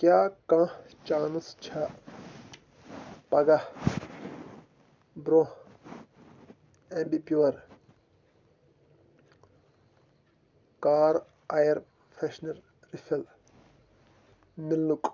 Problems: constant background noise